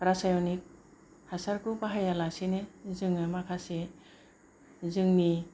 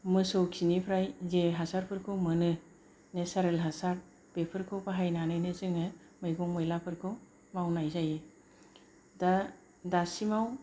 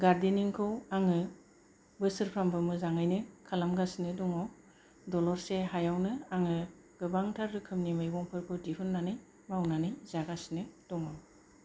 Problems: low volume